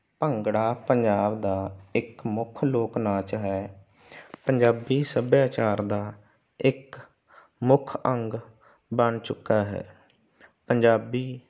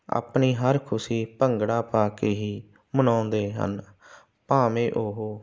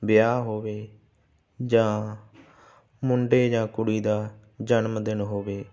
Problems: constant background noise